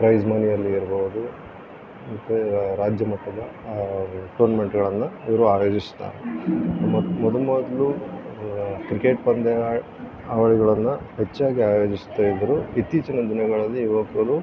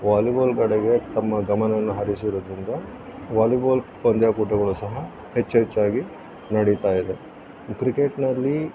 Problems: constant background noise